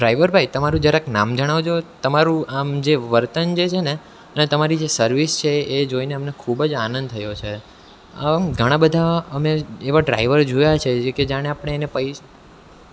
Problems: background sounds at intervals